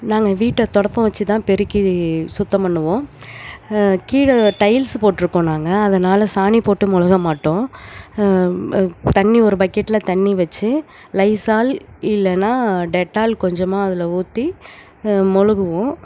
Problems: none marked